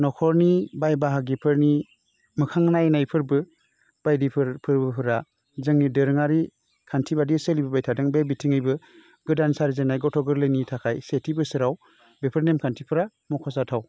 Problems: constant background noise